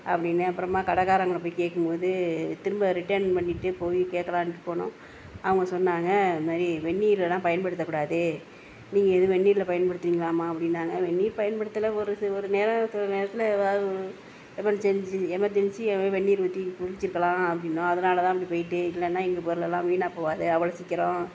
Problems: none marked